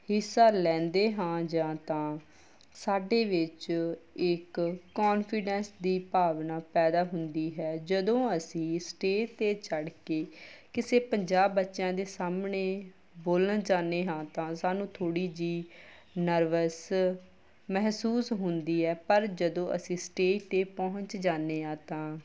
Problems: background sounds at intervals